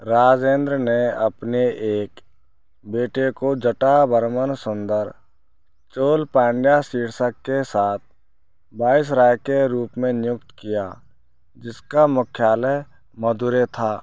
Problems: none marked